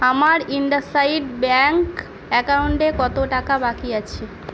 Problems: constant background noise